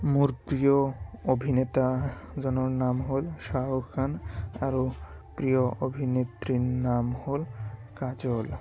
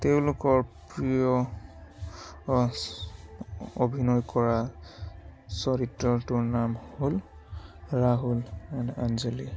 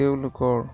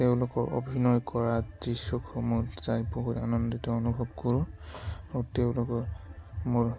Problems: constant background noise, background conversations at intervals